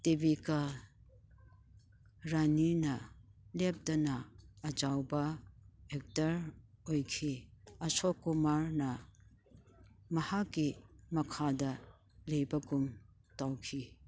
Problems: background sounds at intervals